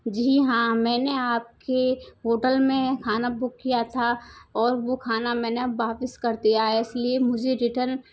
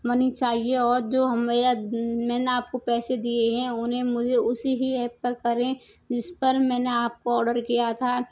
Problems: none marked